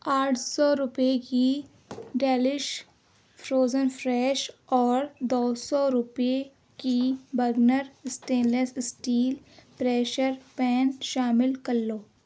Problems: background sounds at intervals